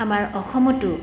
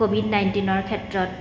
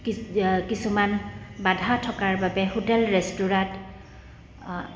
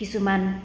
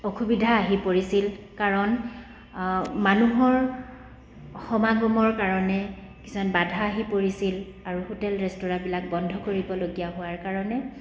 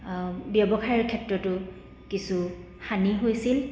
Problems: none marked